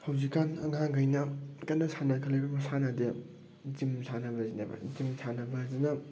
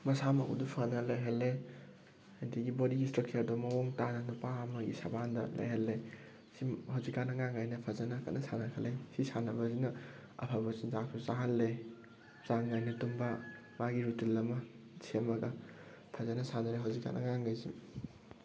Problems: background sounds at intervals